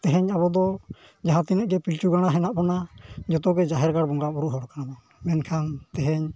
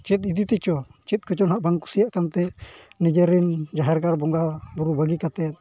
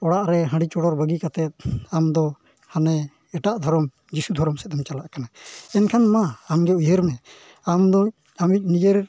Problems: low volume